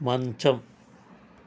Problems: constant background noise